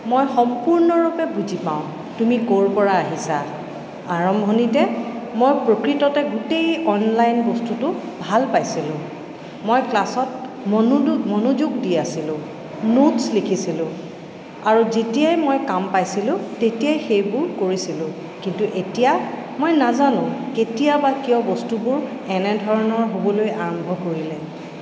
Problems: constant background noise, echo